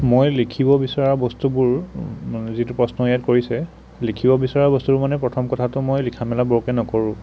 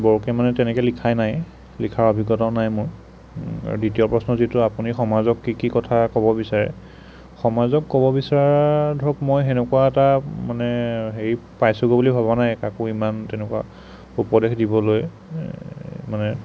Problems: none marked